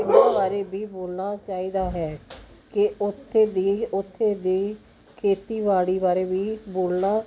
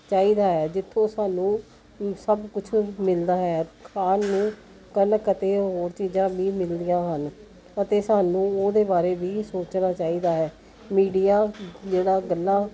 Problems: continuous background conversations